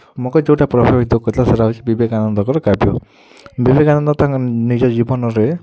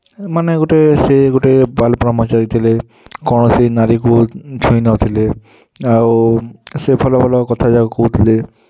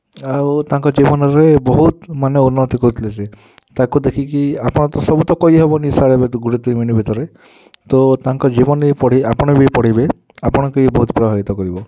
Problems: none marked